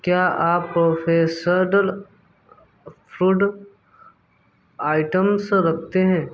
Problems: background sounds at intervals